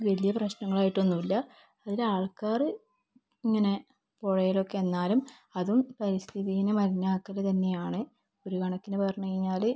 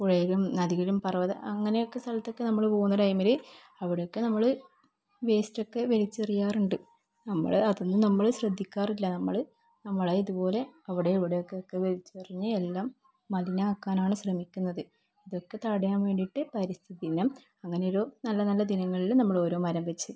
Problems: low volume